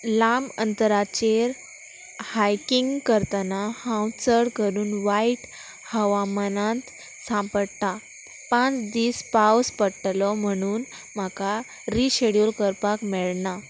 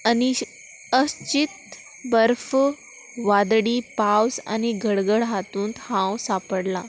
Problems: constant background noise